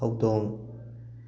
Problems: constant background noise